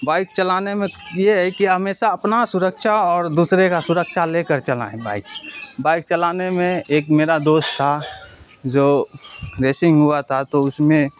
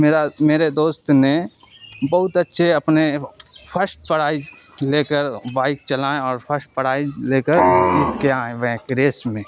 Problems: background sounds at intervals